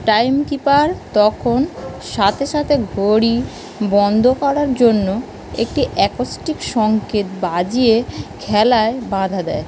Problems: constant background noise